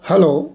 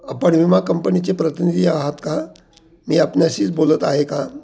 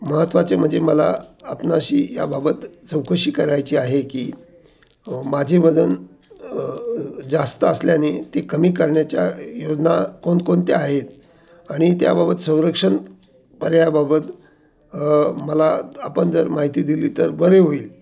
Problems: none marked